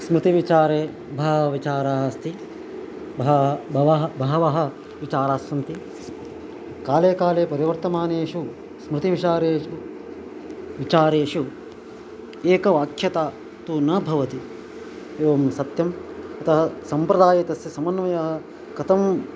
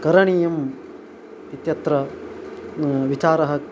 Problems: constant background noise